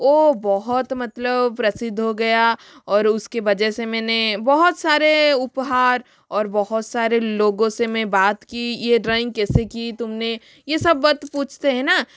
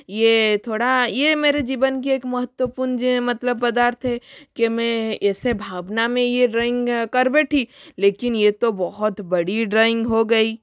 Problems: background sounds at intervals